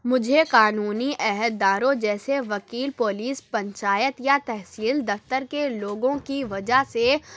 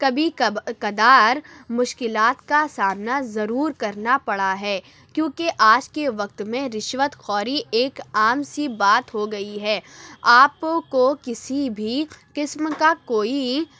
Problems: none marked